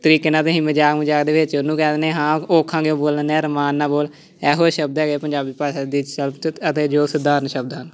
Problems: constant background noise, continuous background conversations